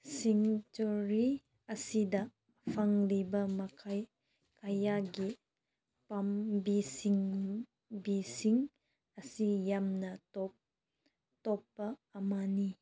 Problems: background sounds at intervals